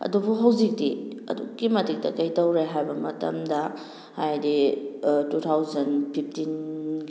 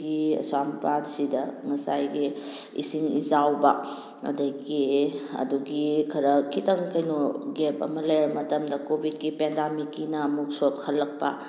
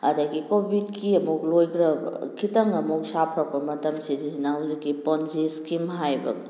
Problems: none marked